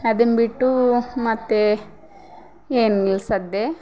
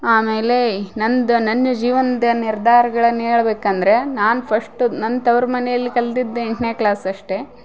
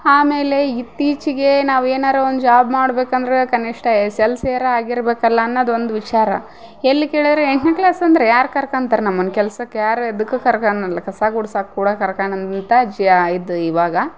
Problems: background sounds at intervals